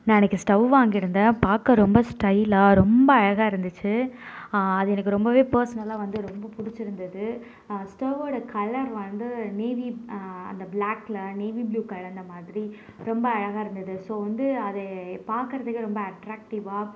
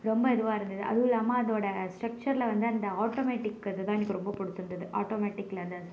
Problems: none marked